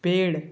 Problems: constant background noise